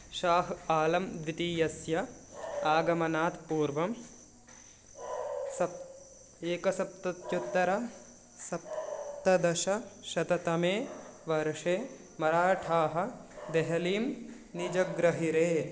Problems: background sounds at intervals